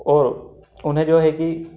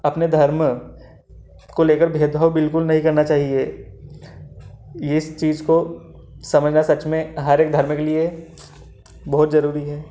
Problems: none marked